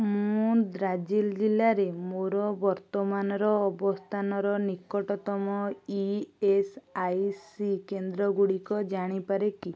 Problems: none marked